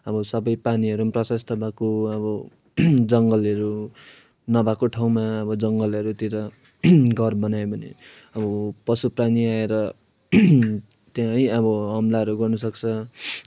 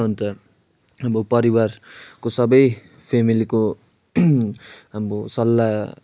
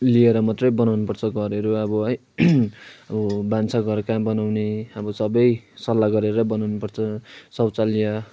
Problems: none marked